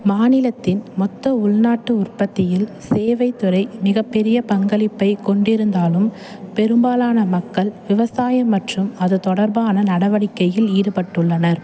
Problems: constant background noise